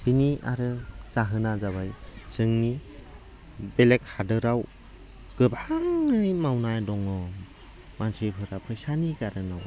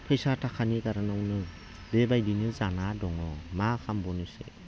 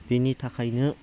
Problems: low volume